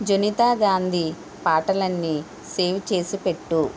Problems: constant background noise